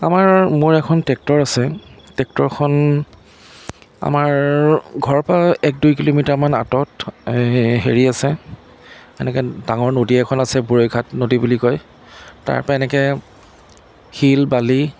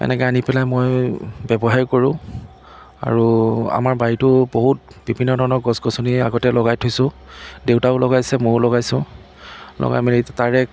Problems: constant background noise